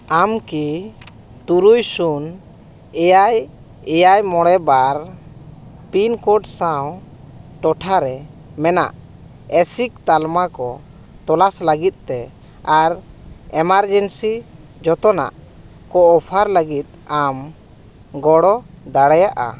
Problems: constant background noise